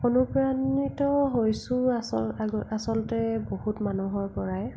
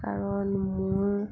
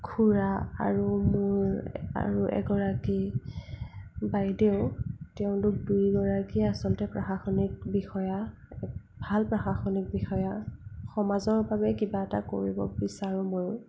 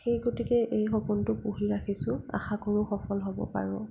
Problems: low volume